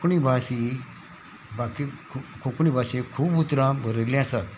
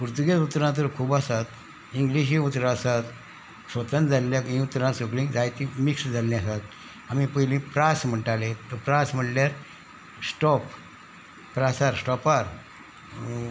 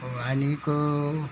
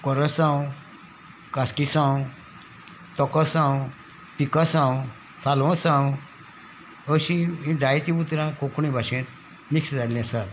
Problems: background sounds at intervals